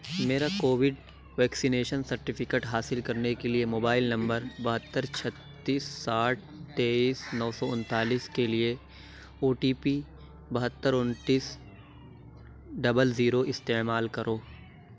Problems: constant background noise